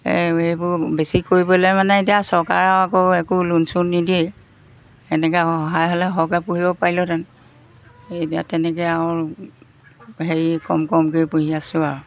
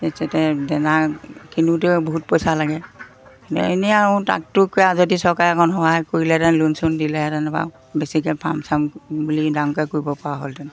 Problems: background sounds at intervals